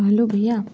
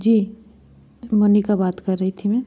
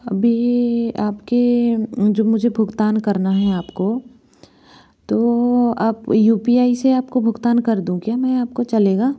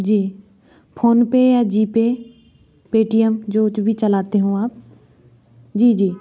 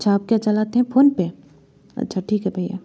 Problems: none marked